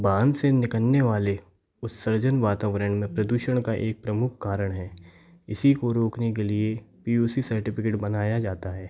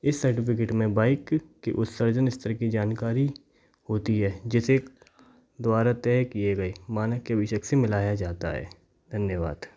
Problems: background sounds at intervals